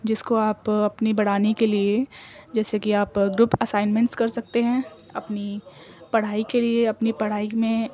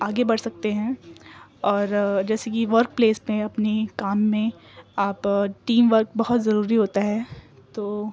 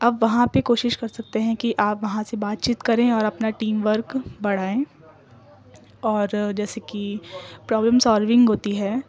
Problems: constant background noise